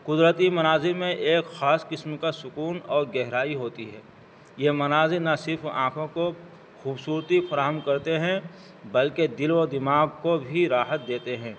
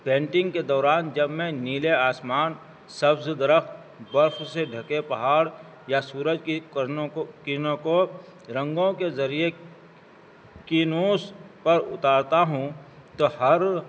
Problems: constant background noise